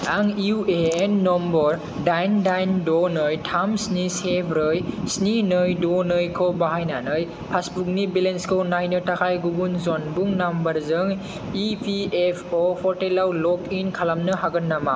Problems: none marked